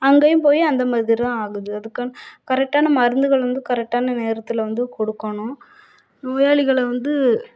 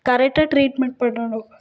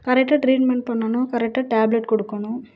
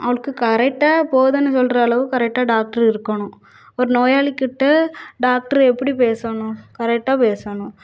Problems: none marked